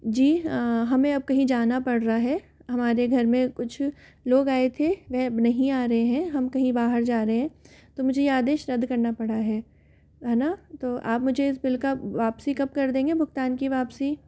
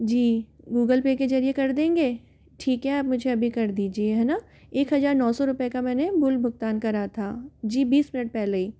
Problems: none marked